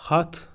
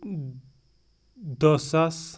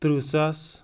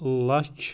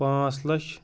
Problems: background sounds at intervals